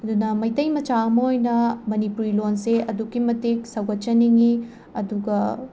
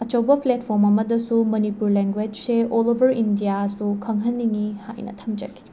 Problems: constant background noise